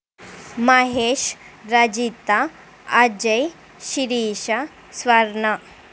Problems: constant background noise